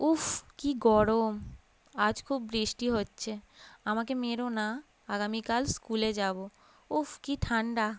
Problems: none marked